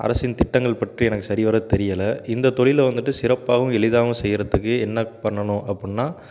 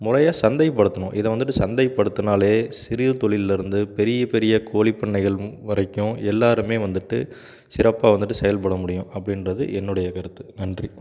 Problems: none marked